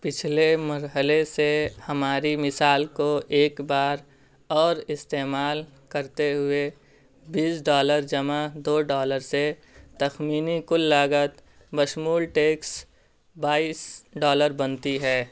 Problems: constant background noise